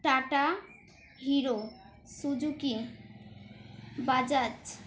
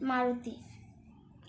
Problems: background sounds at intervals